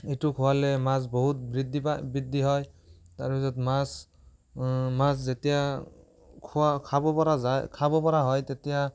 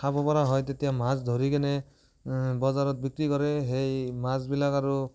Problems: none marked